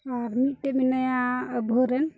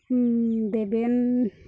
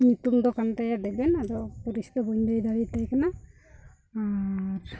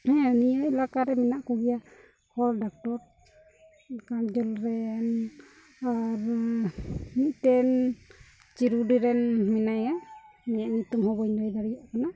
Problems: background sounds at intervals, low volume